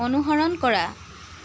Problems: none marked